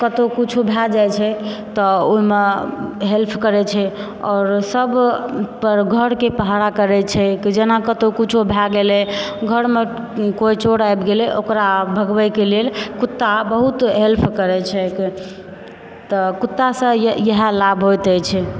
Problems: background sounds at intervals